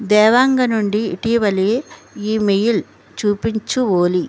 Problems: none marked